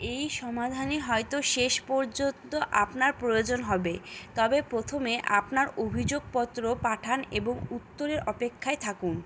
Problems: none marked